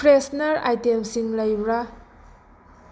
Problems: constant background noise